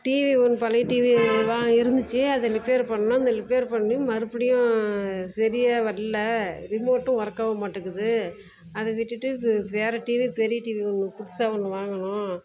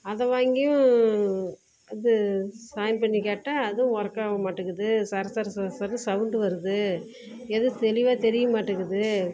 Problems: constant background noise